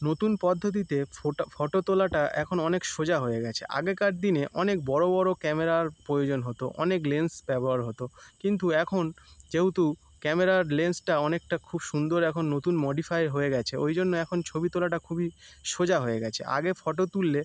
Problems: none marked